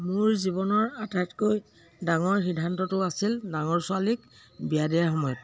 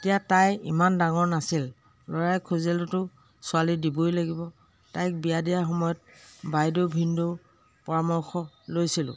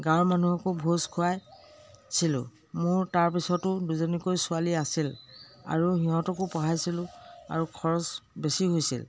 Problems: constant background noise